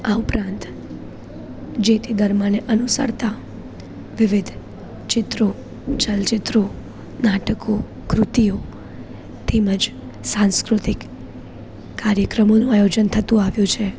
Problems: none marked